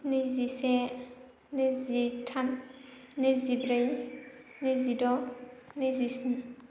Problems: constant background noise